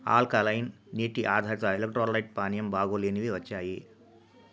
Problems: low volume